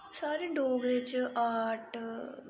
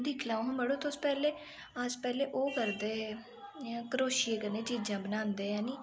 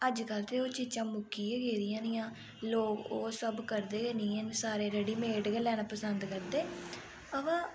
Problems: constant background noise